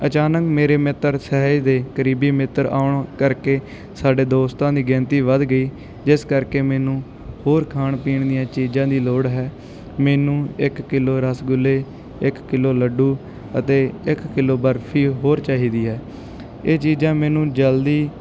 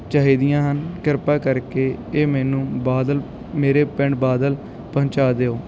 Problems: background sounds at intervals